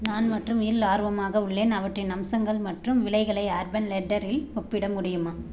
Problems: background sounds at intervals